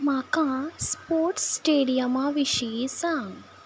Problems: background sounds at intervals